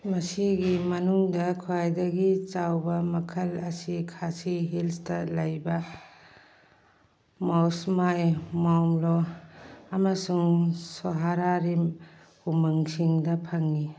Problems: none marked